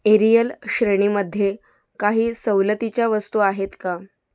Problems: none marked